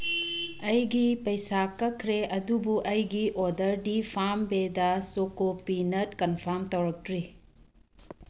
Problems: background sounds at intervals